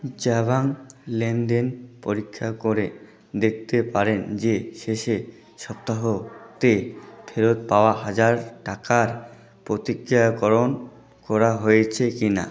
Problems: continuous background conversations